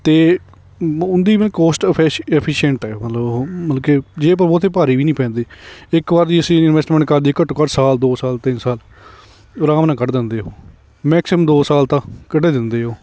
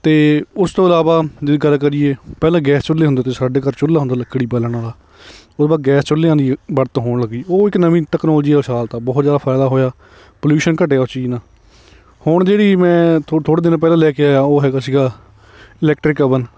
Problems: none marked